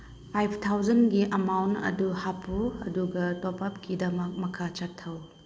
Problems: background sounds at intervals